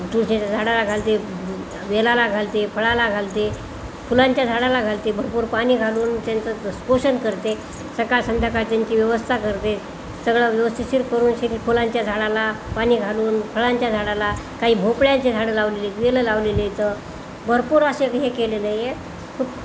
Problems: none marked